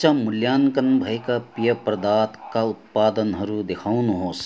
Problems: none marked